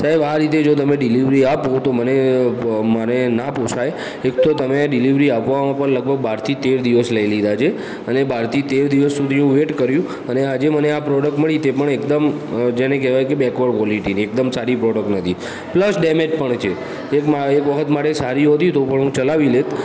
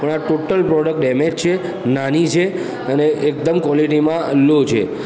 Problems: continuous background conversations